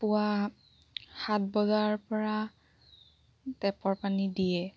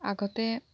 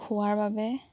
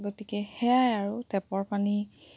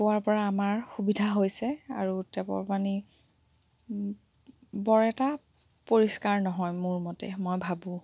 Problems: background sounds at intervals